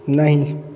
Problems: background sounds at intervals